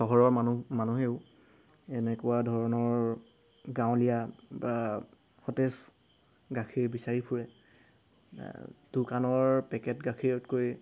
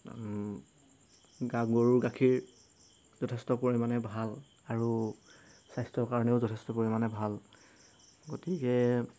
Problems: background sounds at intervals